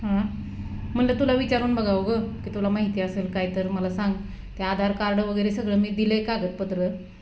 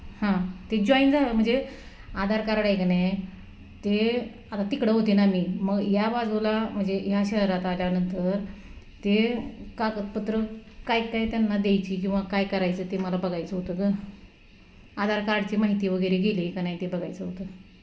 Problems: constant background noise